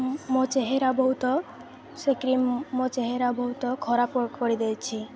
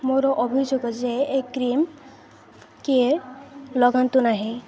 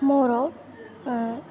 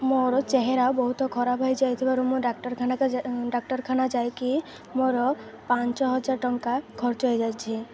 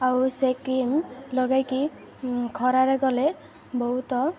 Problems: constant background noise, continuous background conversations